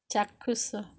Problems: low volume